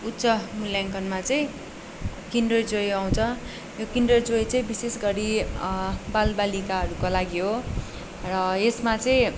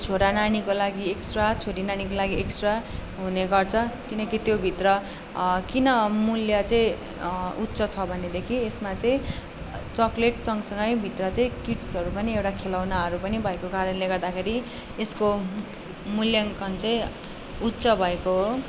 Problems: constant background noise